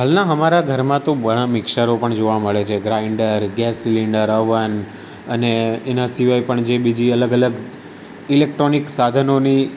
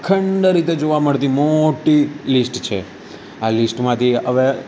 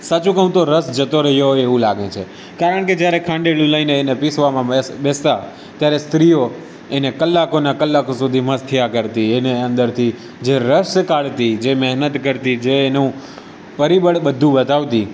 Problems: none marked